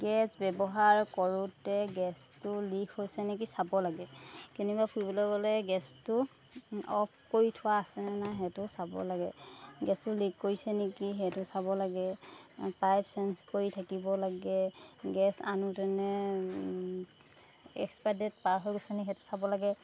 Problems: background sounds at intervals